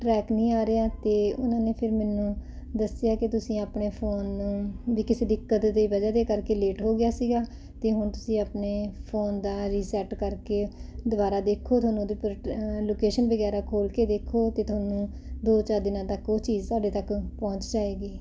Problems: none marked